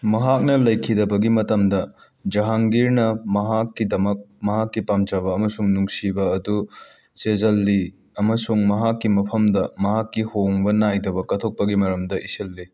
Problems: background sounds at intervals